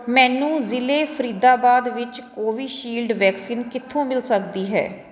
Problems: none marked